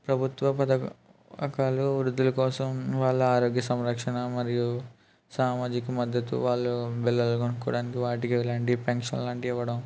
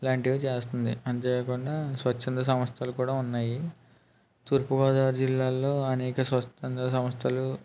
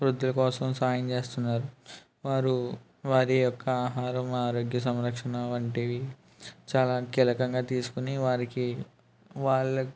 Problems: none marked